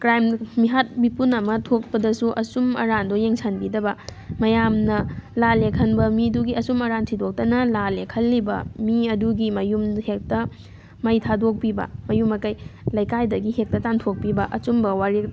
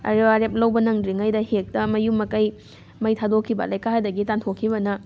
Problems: background sounds at intervals